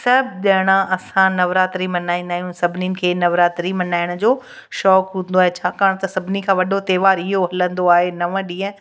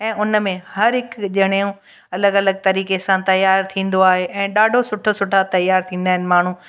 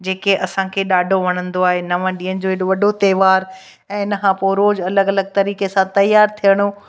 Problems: background sounds at intervals, echo